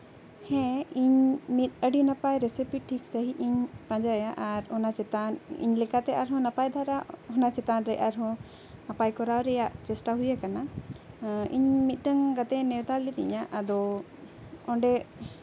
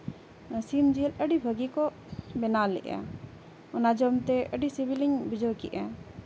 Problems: none marked